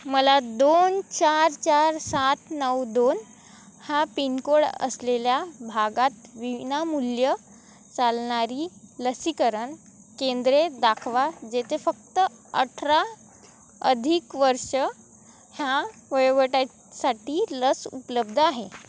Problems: none marked